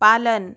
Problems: none marked